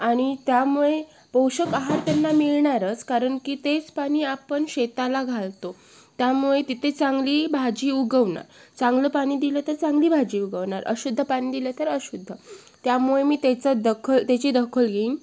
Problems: none marked